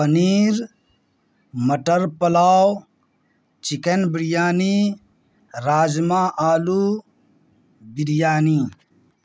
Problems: background sounds at intervals